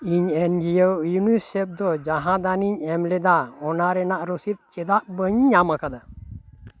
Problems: constant background noise